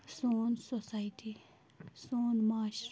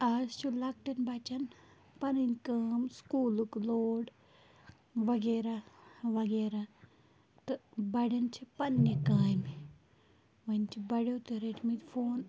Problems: constant background noise